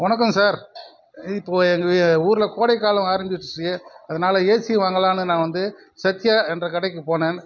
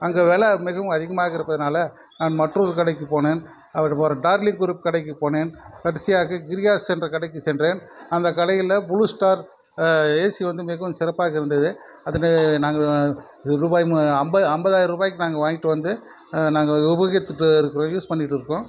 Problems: constant background noise